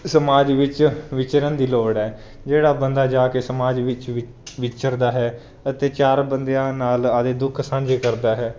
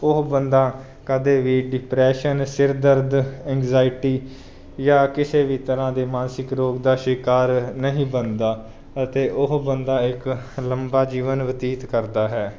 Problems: none marked